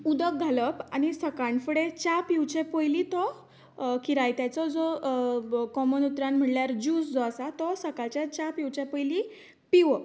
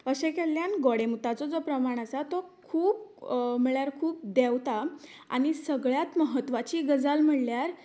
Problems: none marked